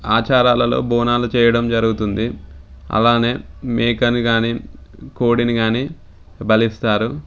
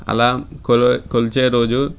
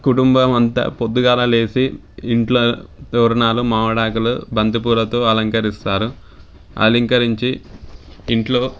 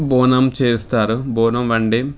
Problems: background sounds at intervals